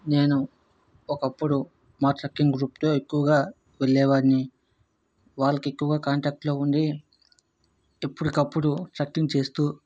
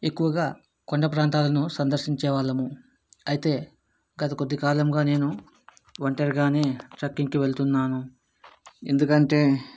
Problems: none marked